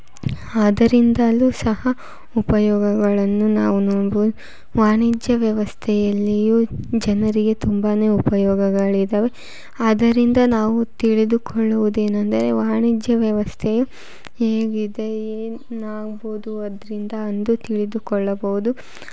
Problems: none marked